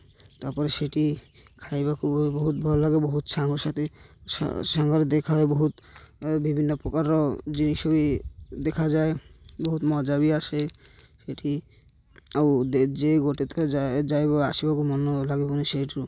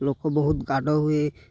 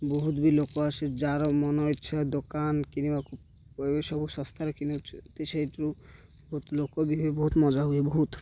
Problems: none marked